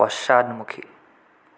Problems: constant background noise